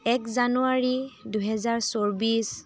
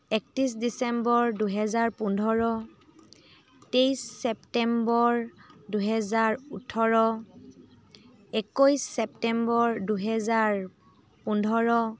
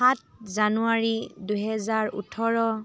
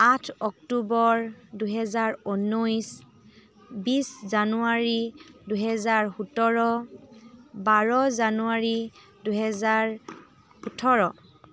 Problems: continuous background conversations